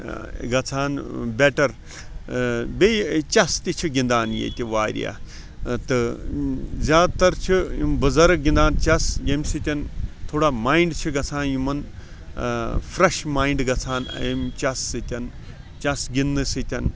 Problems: constant background noise